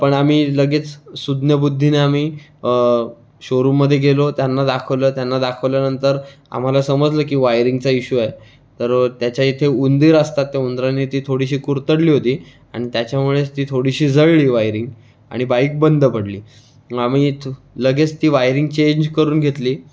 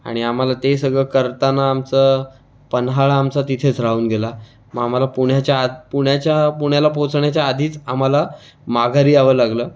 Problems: background sounds at intervals